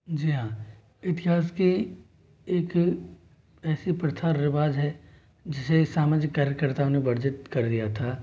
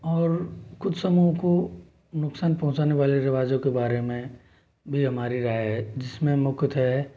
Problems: low volume